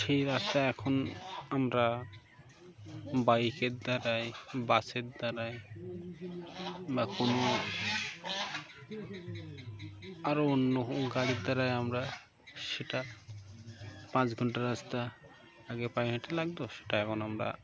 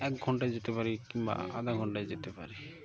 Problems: constant background noise, background conversations at intervals